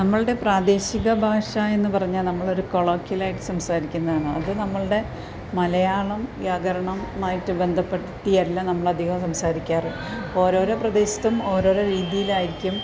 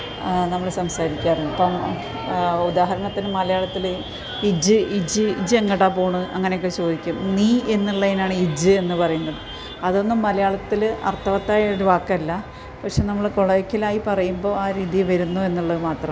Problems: constant background noise